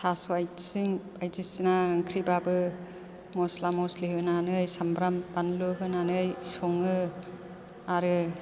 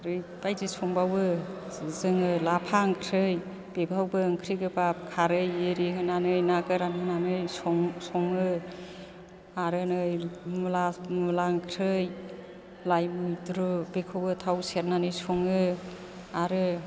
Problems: background conversations at intervals